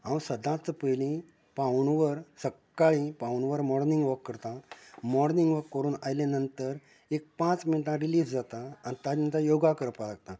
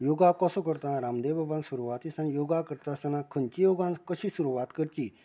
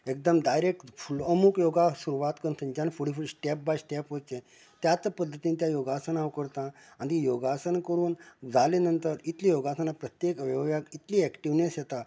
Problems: constant background noise